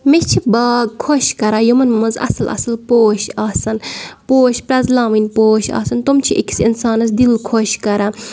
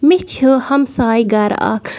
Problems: none marked